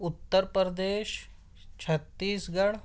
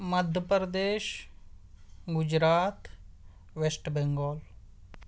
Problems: none marked